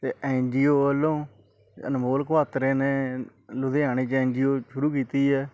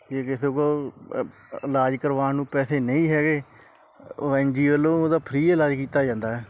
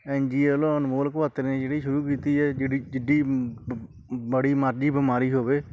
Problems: none marked